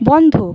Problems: background sounds at intervals